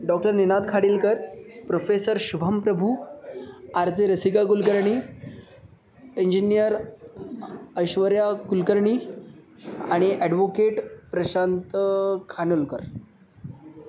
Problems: constant background noise, background conversations at intervals